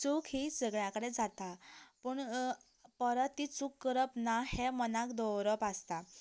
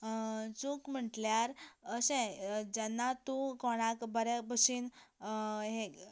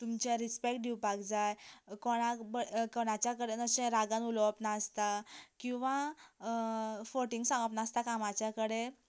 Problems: background conversations at intervals